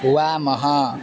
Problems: constant background noise, continuous background conversations